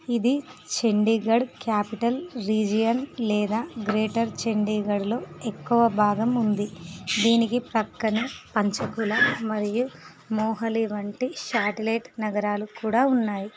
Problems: background sounds at intervals